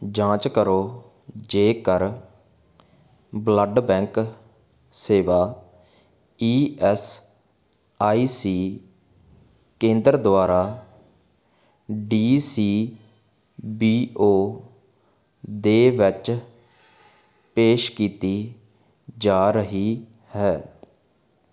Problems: constant background noise